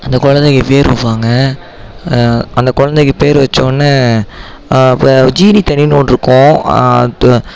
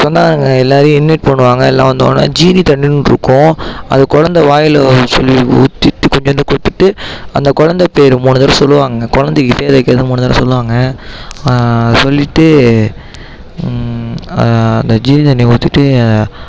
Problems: background sounds at intervals, background conversations at intervals